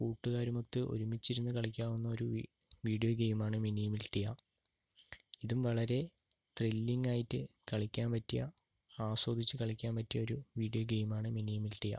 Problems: low volume